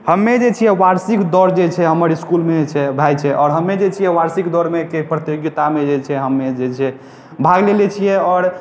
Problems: background sounds at intervals